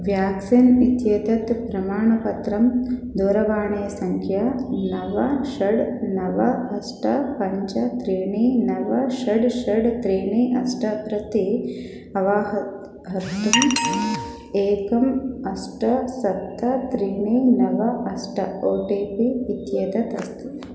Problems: background sounds at intervals